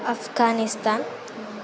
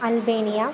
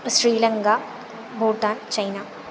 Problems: constant background noise